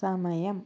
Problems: low volume